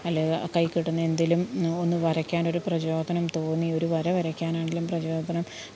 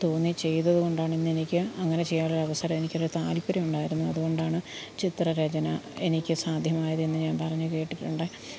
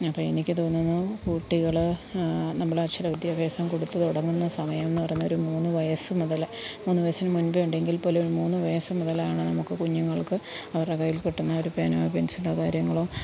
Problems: background sounds at intervals, low volume